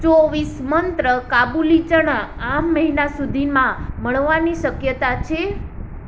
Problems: constant background noise